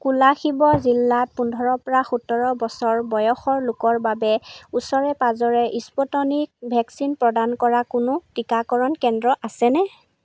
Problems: none marked